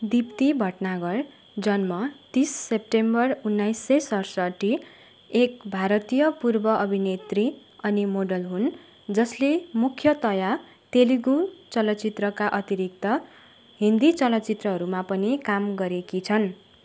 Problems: constant background noise